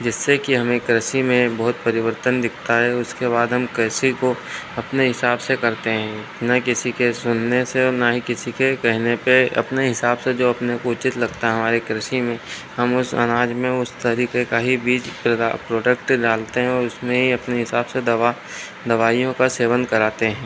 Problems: constant background noise